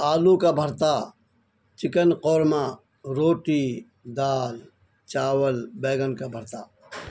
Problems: constant background noise